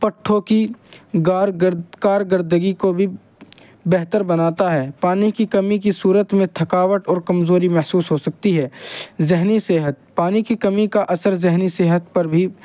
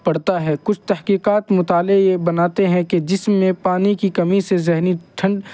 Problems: constant background noise